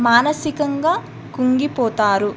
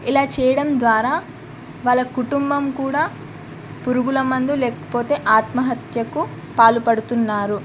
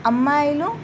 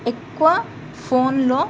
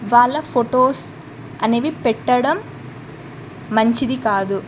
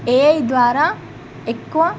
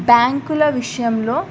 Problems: background sounds at intervals